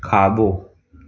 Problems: none marked